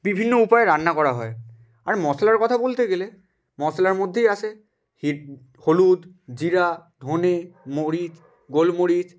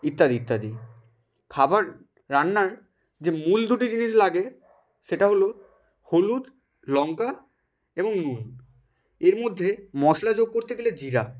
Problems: background sounds at intervals